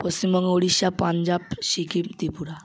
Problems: constant background noise